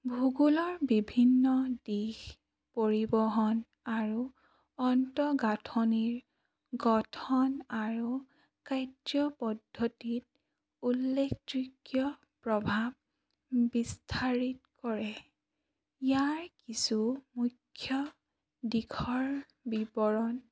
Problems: none marked